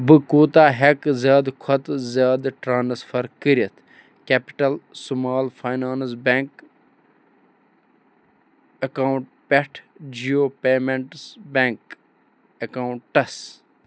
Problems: none marked